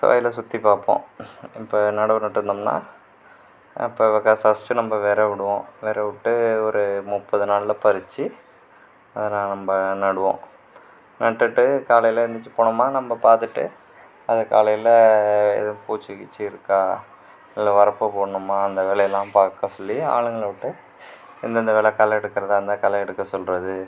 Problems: background conversations at intervals